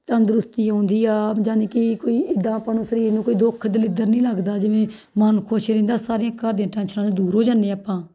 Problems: background sounds at intervals